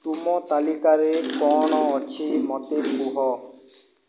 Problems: background sounds at intervals